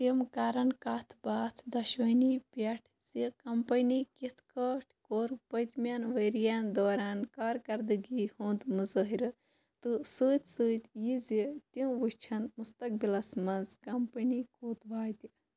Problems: constant background noise